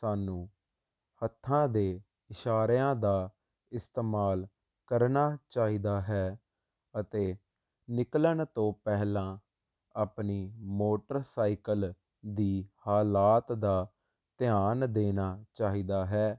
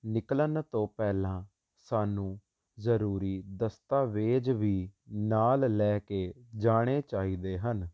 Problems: constant background noise